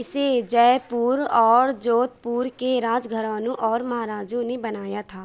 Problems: none marked